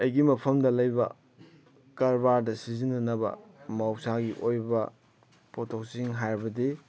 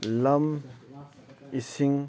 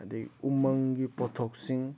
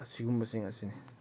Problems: background sounds at intervals